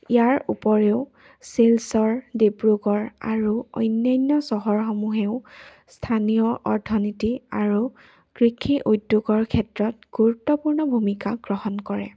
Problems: none marked